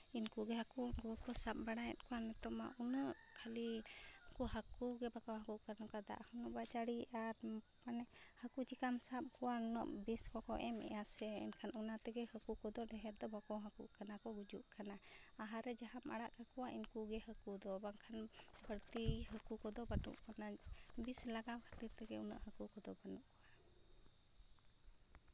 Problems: low volume